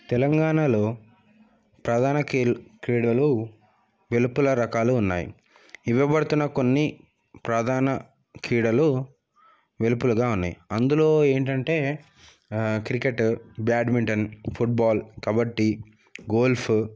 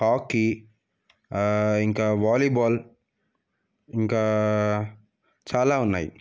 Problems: background sounds at intervals